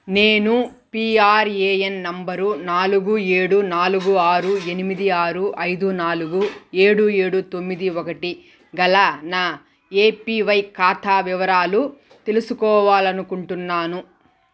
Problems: background sounds at intervals